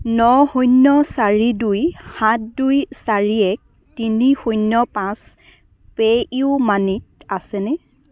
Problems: none marked